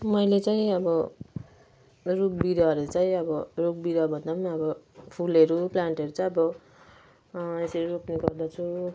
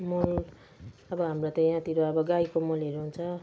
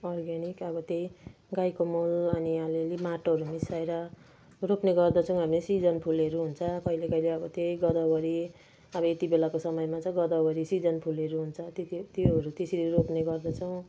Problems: none marked